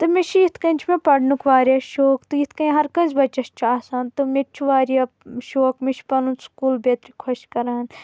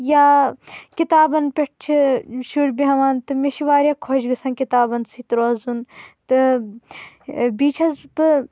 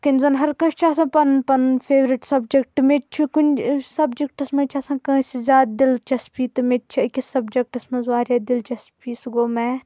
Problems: constant background noise